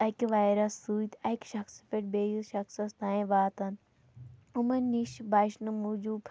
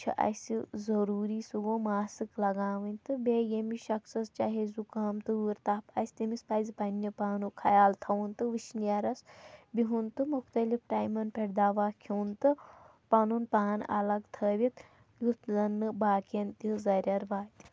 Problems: none marked